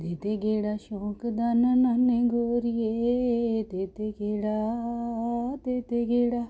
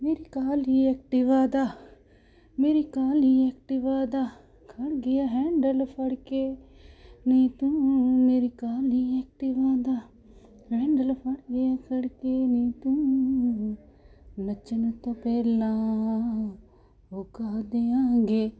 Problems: none marked